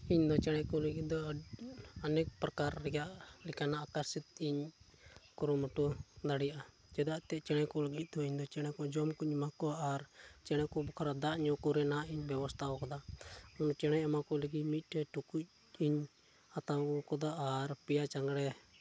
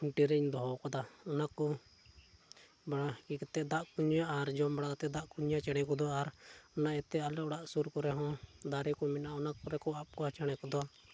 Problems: low volume